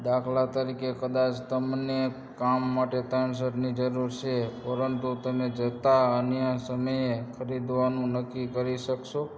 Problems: constant background noise